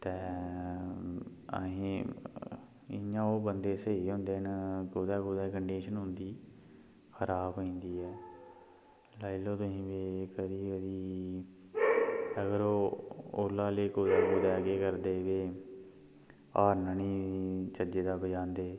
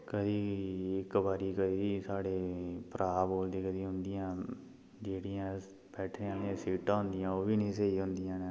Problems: constant background noise, low volume